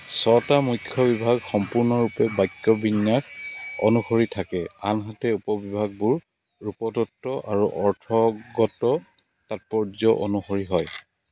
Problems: background sounds at intervals